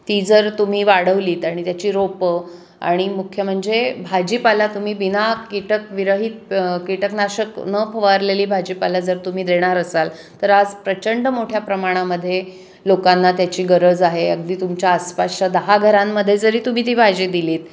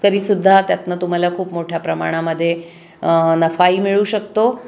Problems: constant background noise, echo